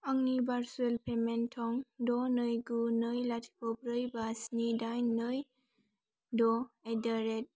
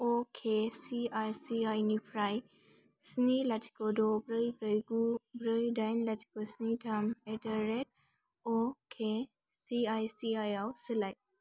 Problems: none marked